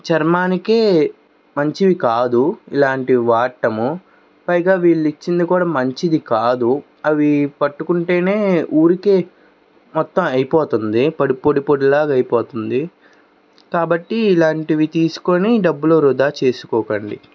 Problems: background sounds at intervals